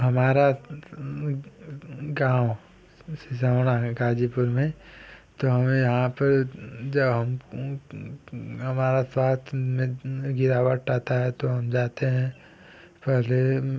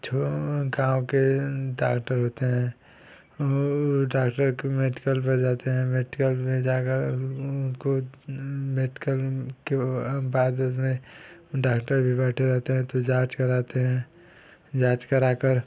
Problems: constant background noise